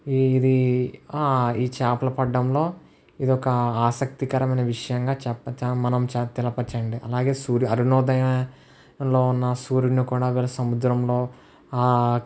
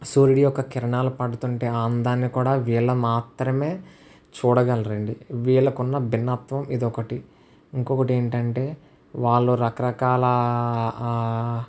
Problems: constant background noise